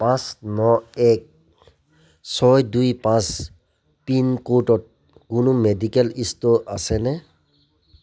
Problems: none marked